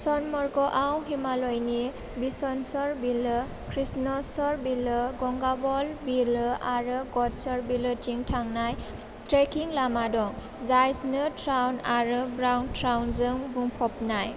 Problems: constant background noise